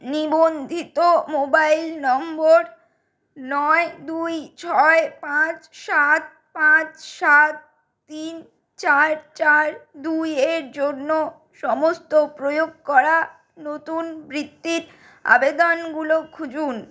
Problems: background sounds at intervals